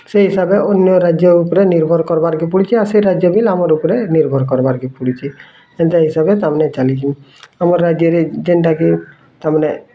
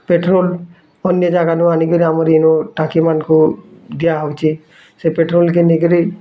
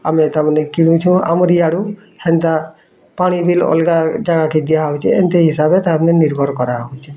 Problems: constant background noise, continuous background conversations